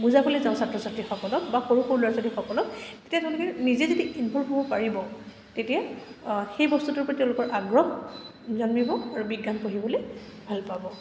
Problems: none marked